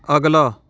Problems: continuous background conversations